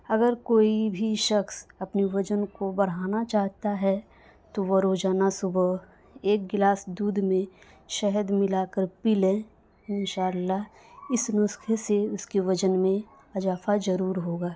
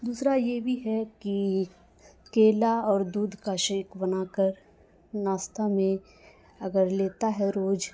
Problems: constant background noise